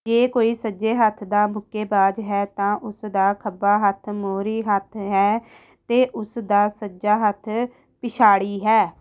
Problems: background sounds at intervals